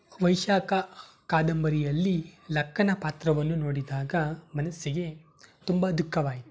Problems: none marked